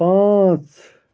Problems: background sounds at intervals